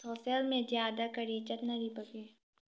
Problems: low volume